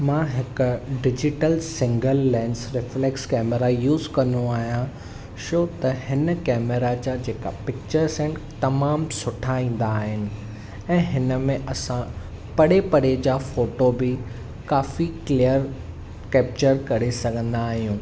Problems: none marked